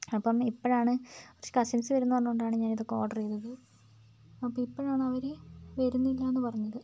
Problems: constant background noise